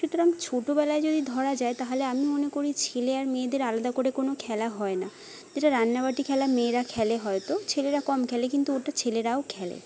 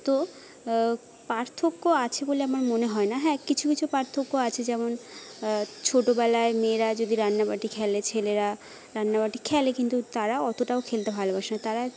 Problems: constant background noise